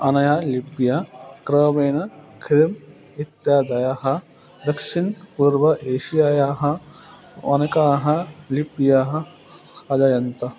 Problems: constant background noise